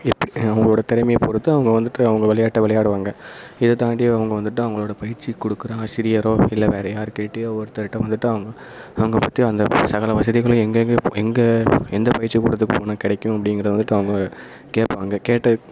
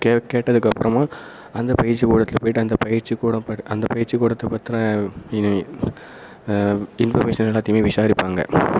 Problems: constant background noise